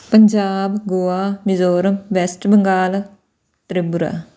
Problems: none marked